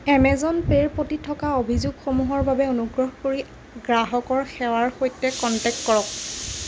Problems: constant background noise